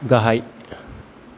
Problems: constant background noise